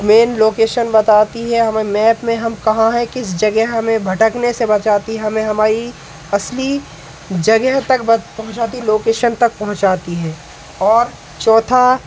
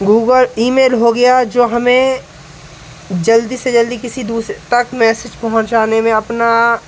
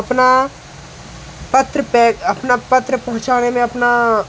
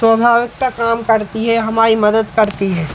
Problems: none marked